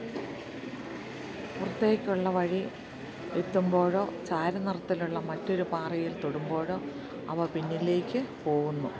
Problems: low volume